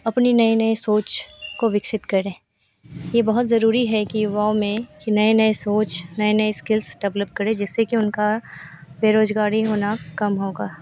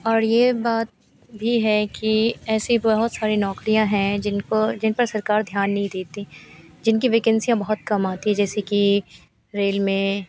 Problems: constant background noise